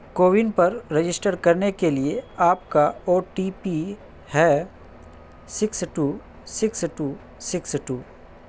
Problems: background sounds at intervals